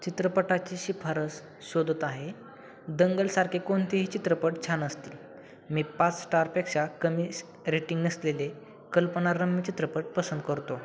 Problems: none marked